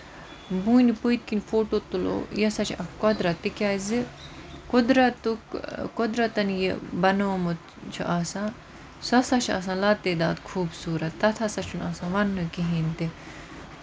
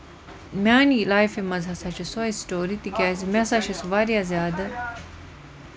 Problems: constant background noise